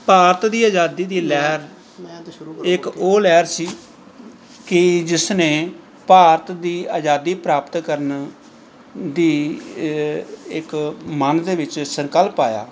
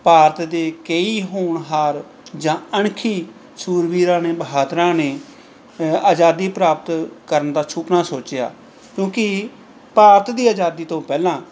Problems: none marked